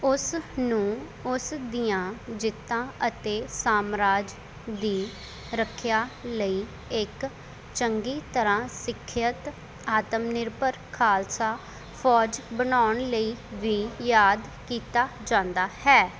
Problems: none marked